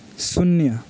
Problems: background sounds at intervals